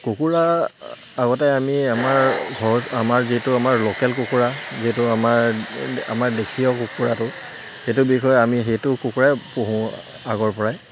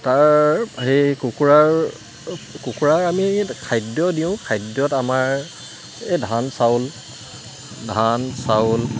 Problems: background sounds at intervals